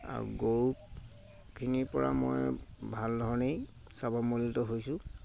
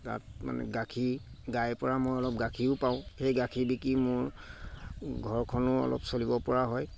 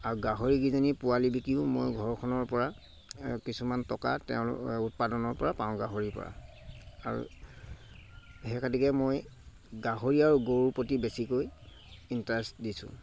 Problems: constant background noise